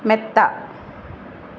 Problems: constant background noise